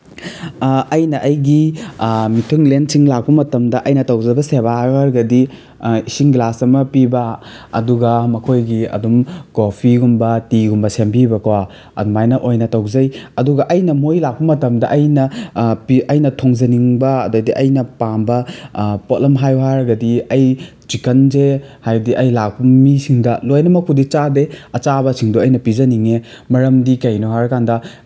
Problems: background sounds at intervals